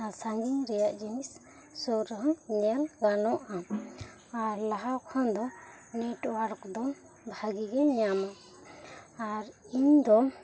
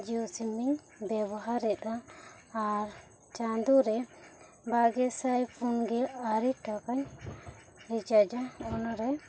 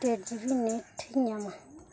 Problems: low volume